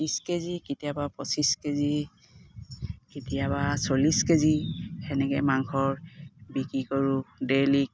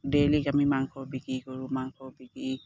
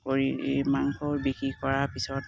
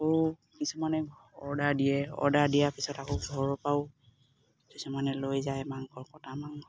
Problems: none marked